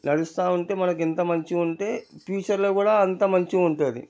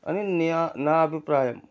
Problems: low volume